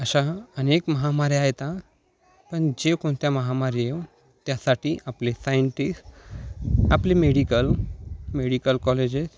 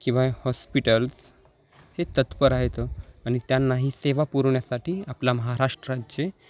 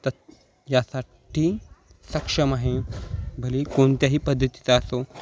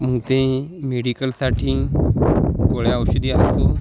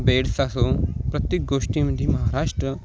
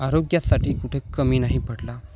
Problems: none marked